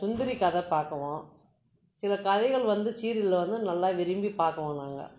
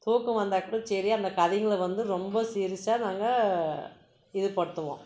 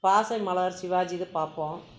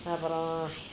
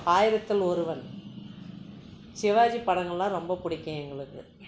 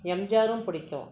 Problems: constant background noise